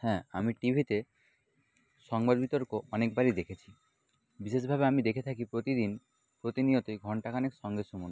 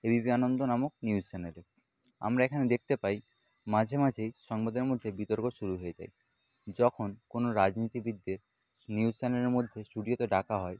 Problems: background sounds at intervals